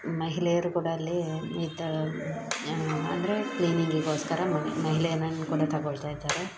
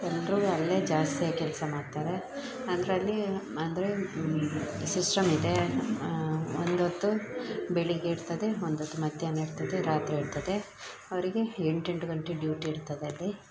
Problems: background sounds at intervals